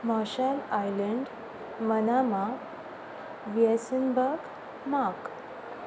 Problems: constant background noise